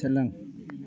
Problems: constant background noise